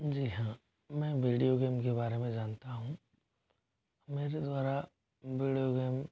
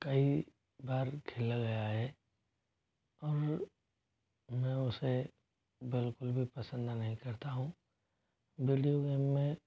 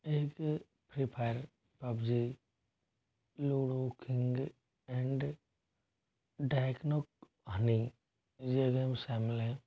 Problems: low volume